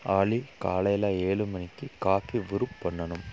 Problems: low volume